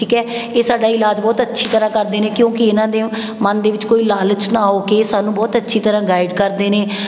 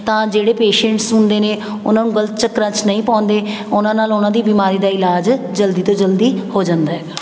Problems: background sounds at intervals